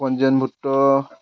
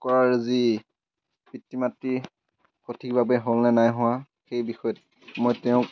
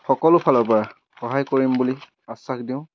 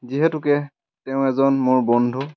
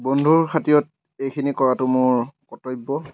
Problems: constant background noise